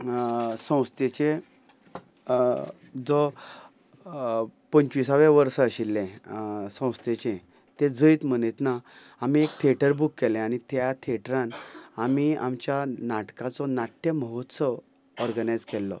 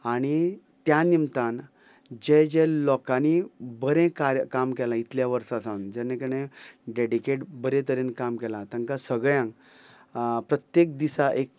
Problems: background sounds at intervals